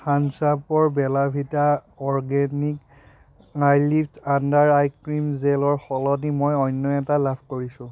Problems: background sounds at intervals